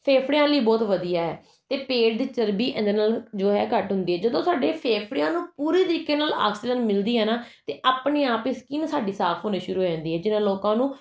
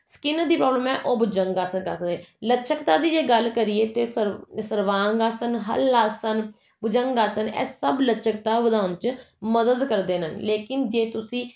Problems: none marked